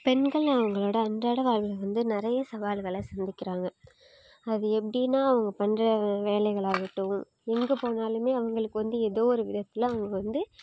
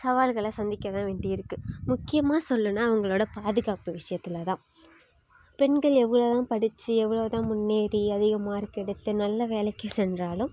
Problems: none marked